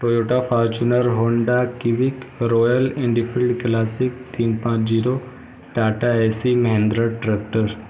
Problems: constant background noise